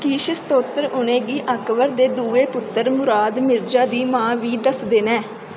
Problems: constant background noise